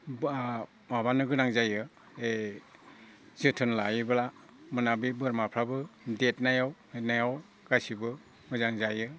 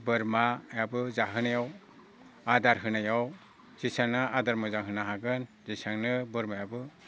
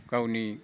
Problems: constant background noise